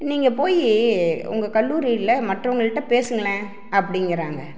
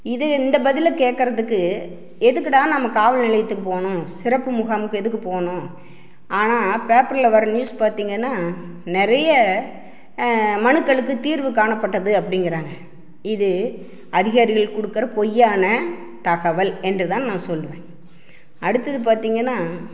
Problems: none marked